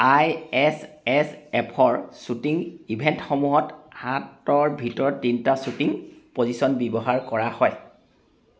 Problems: constant background noise